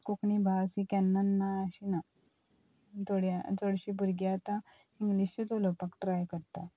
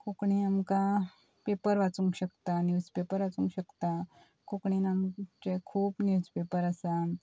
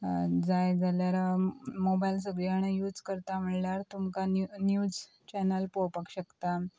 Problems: none marked